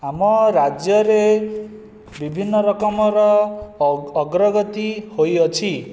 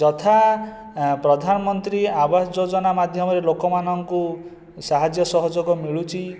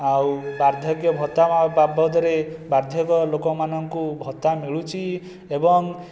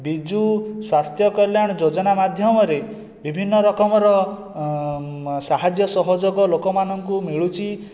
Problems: constant background noise